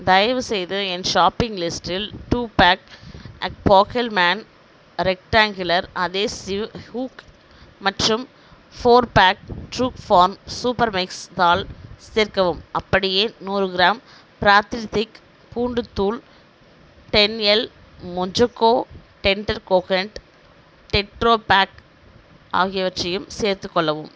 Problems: background sounds at intervals